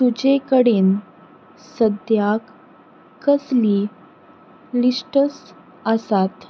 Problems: background sounds at intervals